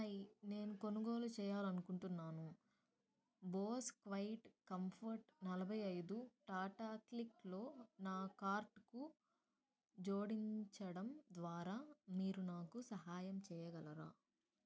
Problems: low volume